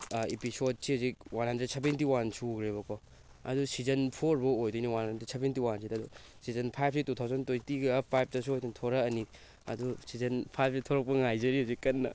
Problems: background sounds at intervals